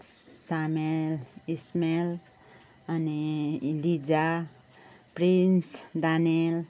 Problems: none marked